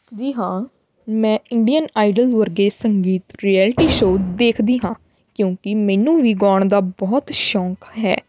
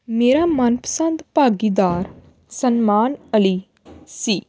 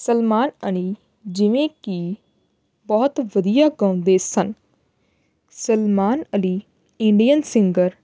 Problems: background sounds at intervals